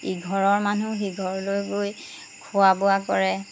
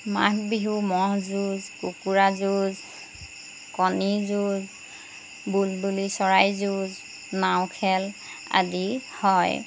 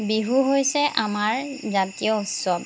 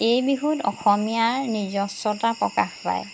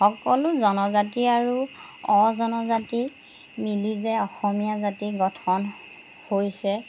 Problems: background sounds at intervals